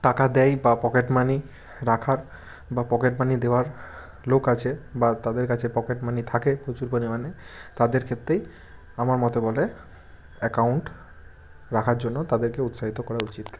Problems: background sounds at intervals